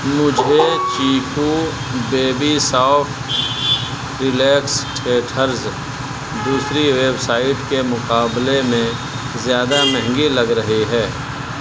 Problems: constant background noise